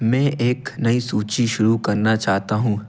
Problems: none marked